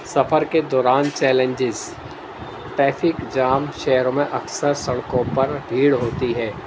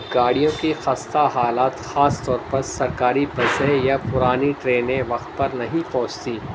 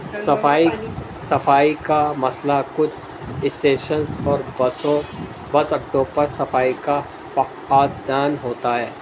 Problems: constant background noise, low volume